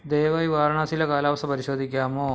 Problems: none marked